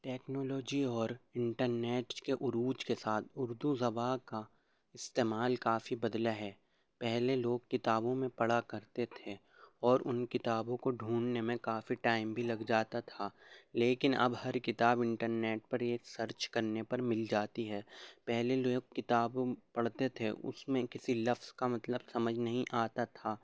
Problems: low volume